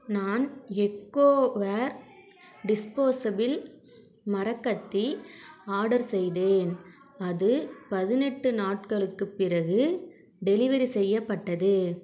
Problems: continuous background conversations